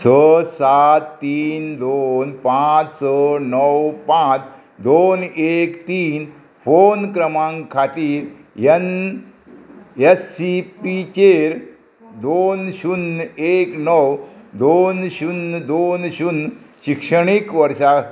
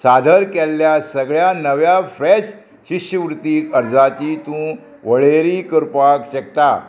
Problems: constant background noise